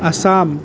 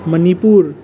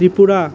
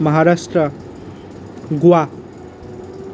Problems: none marked